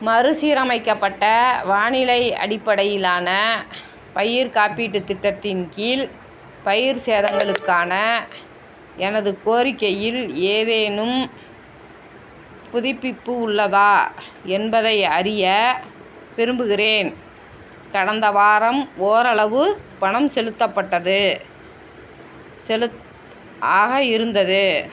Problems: constant background noise